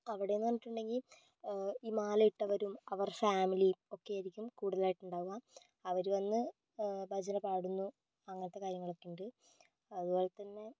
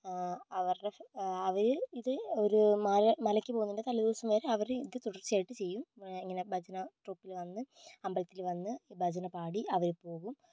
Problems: low volume